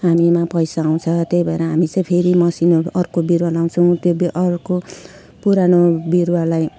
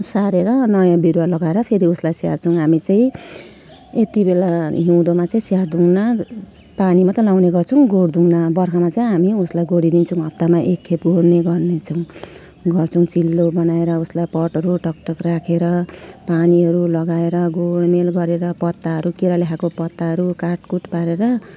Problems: none marked